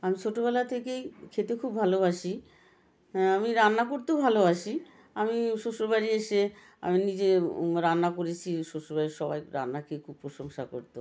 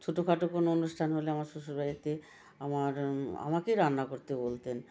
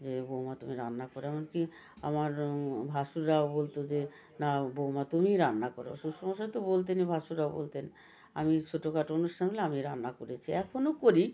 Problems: continuous background conversations